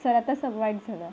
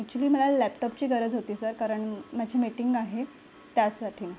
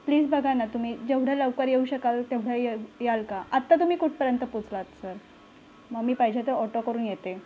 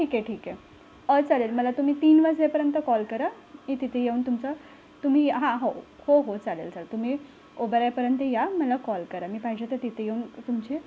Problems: none marked